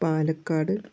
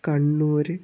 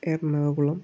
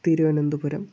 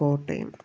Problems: low volume